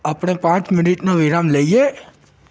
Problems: background sounds at intervals